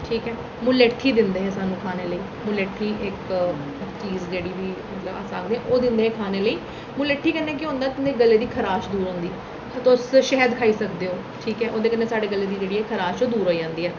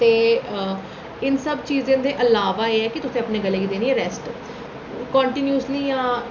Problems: none marked